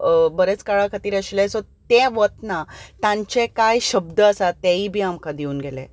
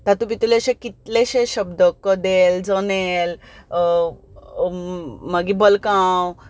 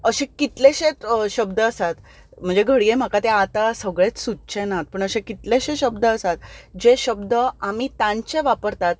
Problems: background sounds at intervals